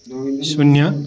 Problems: constant background noise